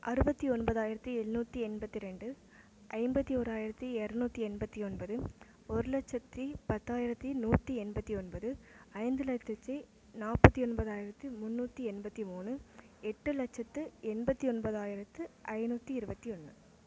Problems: none marked